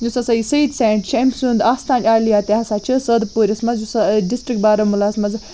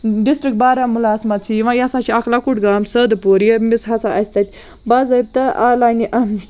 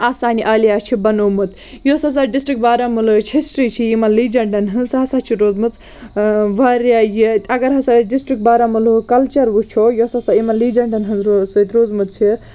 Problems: none marked